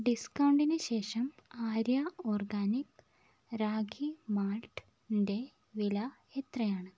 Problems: none marked